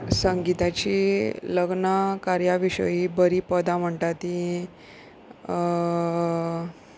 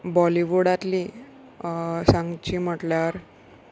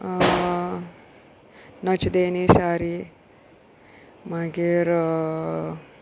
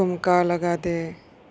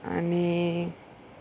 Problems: background sounds at intervals